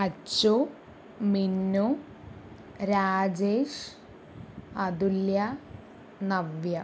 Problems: none marked